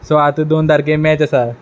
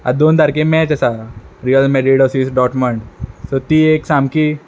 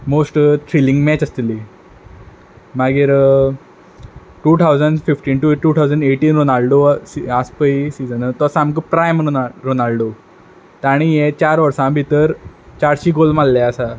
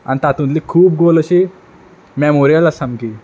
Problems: background sounds at intervals